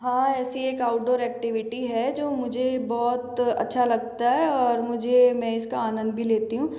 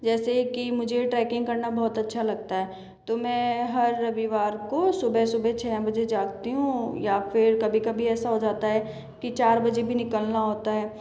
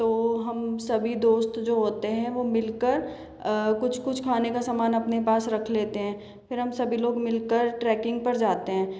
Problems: constant background noise, echo